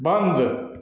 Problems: background sounds at intervals, echo